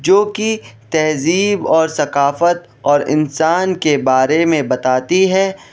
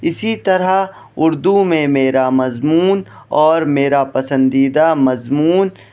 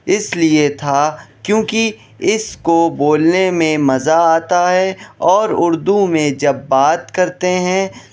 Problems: constant background noise